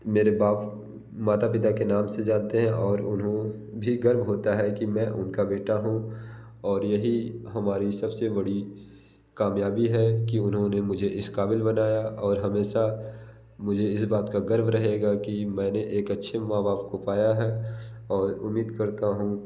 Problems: none marked